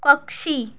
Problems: none marked